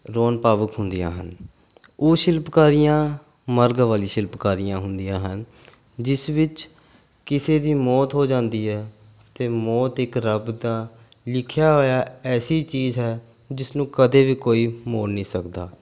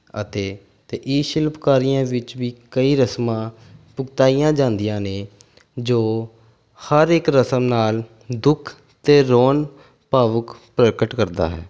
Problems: background sounds at intervals